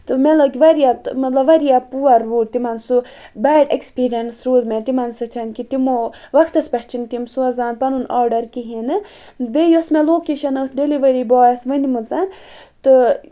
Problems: constant background noise